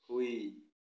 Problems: low volume